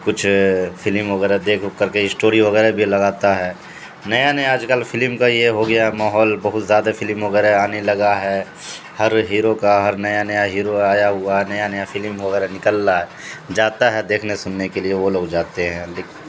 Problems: constant background noise